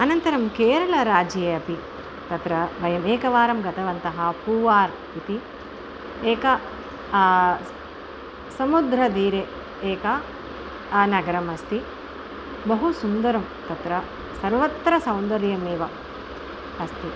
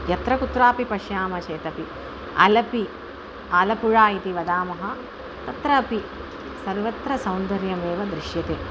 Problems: constant background noise